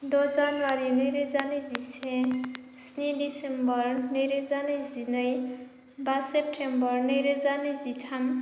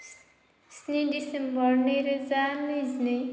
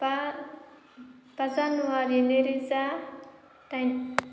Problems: none marked